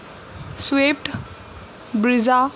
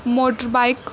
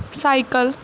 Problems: none marked